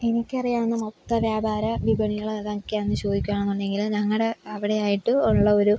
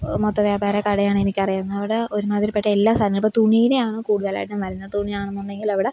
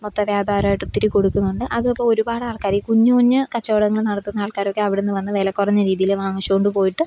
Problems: none marked